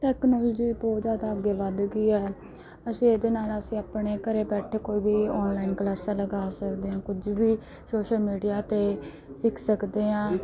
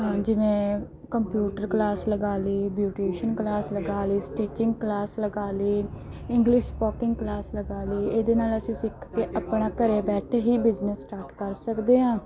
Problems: background sounds at intervals, background conversations at intervals